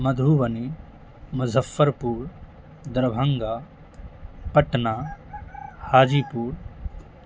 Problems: constant background noise